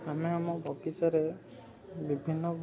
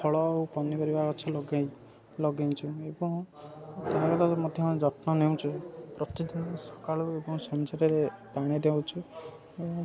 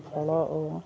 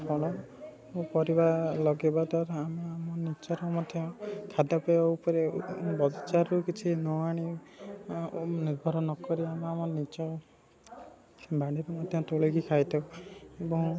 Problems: constant background noise, continuous background conversations